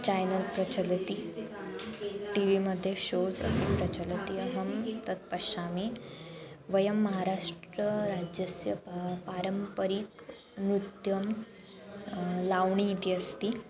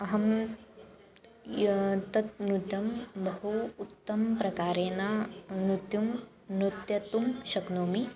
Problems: none marked